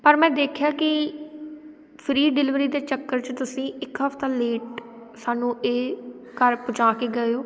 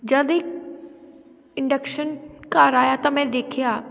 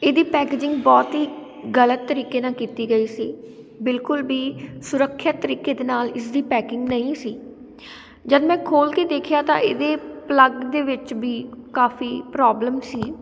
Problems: none marked